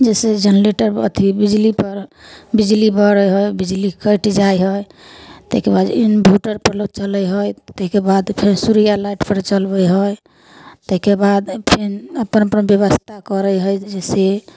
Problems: none marked